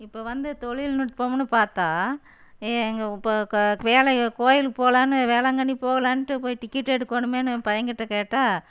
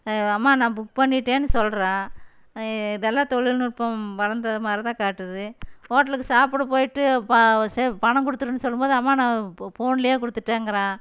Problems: none marked